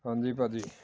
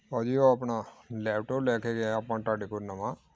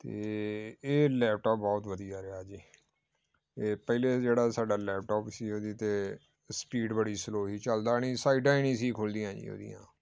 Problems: background sounds at intervals, background conversations at intervals